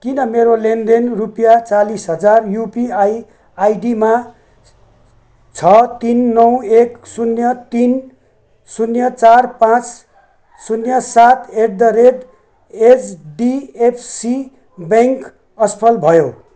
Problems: background sounds at intervals